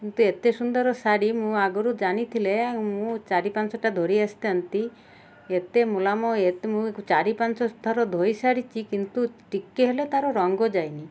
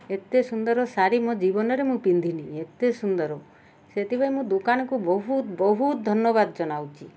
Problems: none marked